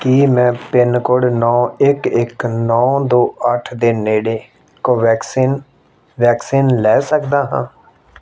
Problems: background sounds at intervals